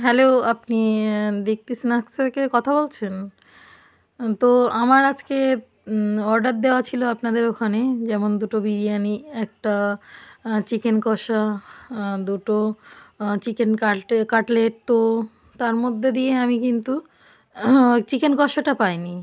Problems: none marked